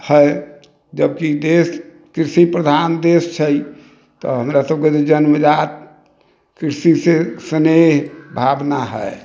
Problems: none marked